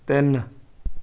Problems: none marked